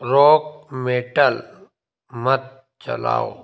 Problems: constant background noise